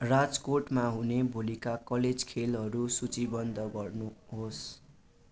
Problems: constant background noise